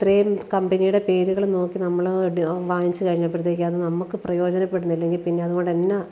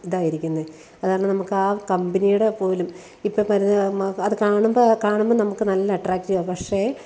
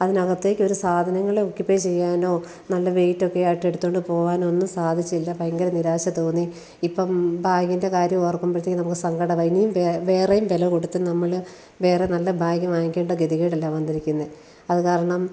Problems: none marked